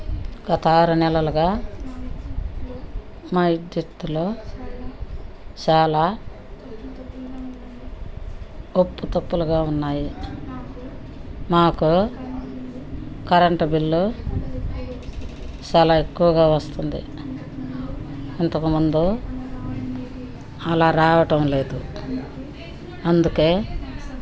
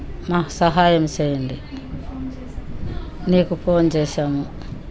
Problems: background conversations at intervals